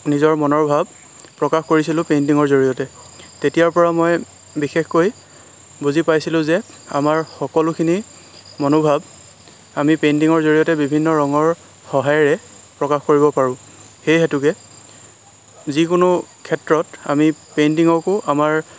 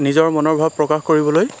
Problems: constant background noise